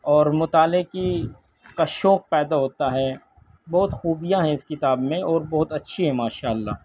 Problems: background conversations at intervals